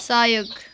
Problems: continuous background conversations